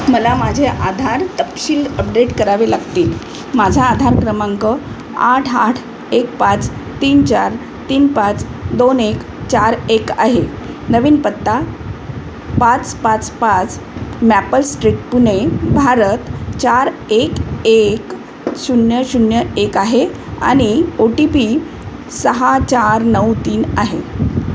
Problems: constant background noise